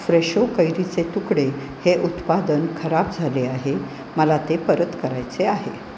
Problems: none marked